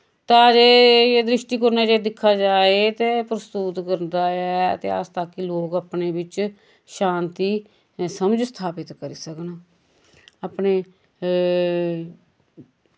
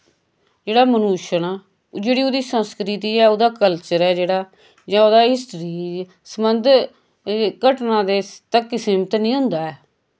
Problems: constant background noise